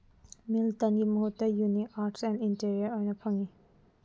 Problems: low volume